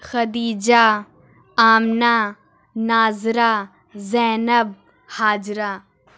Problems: none marked